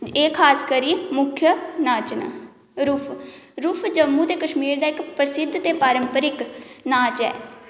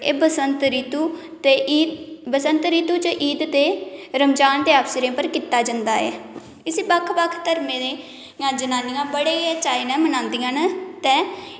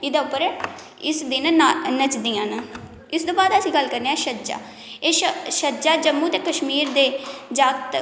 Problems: background sounds at intervals, echo